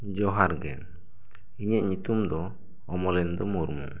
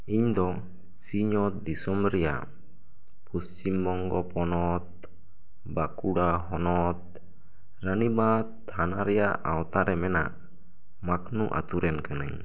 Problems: none marked